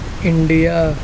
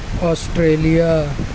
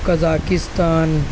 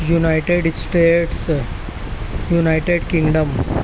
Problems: constant background noise